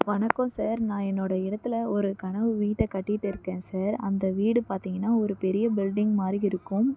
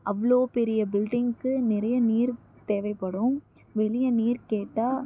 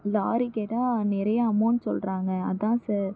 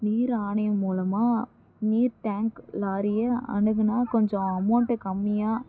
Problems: low volume